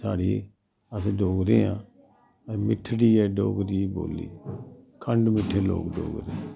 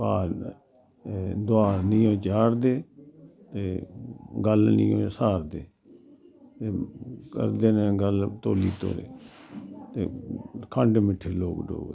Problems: none marked